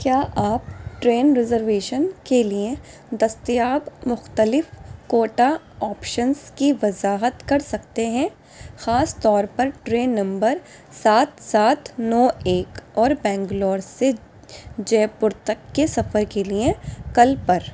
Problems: constant background noise